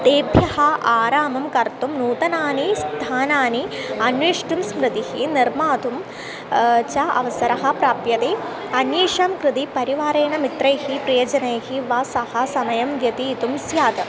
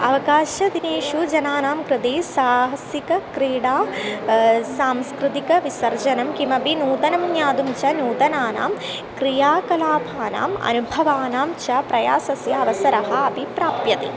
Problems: constant background noise, continuous background conversations